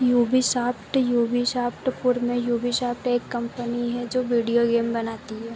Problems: constant background noise